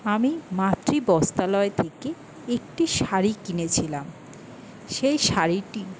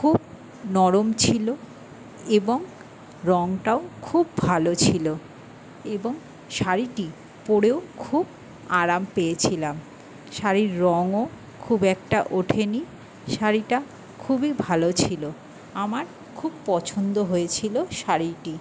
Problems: constant background noise